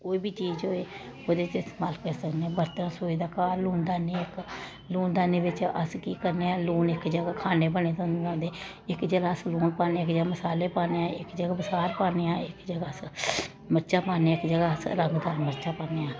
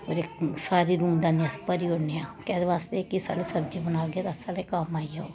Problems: constant background noise